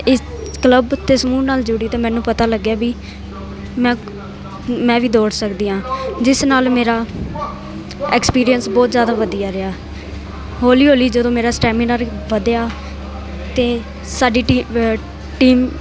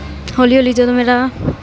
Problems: none marked